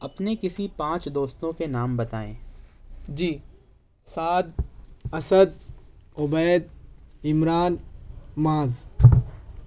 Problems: none marked